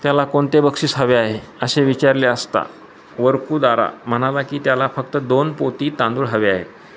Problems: background sounds at intervals